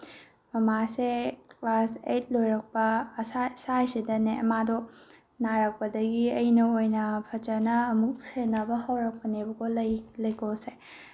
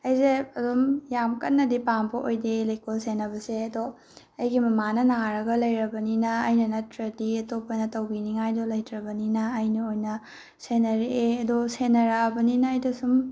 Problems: background sounds at intervals